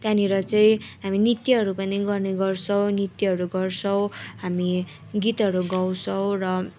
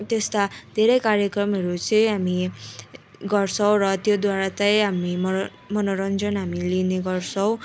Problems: continuous background conversations